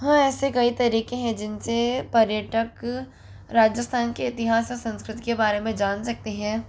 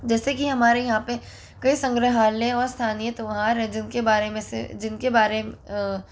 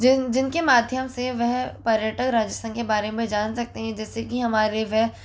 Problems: constant background noise